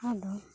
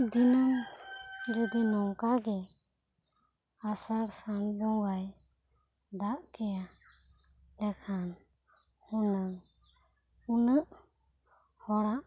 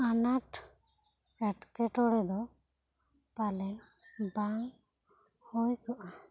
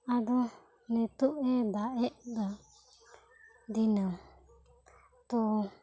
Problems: low volume